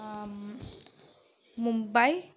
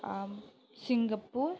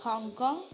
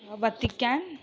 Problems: low volume